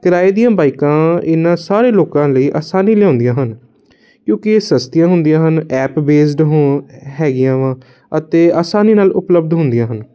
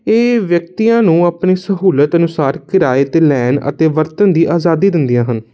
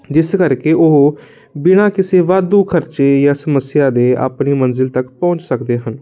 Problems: constant background noise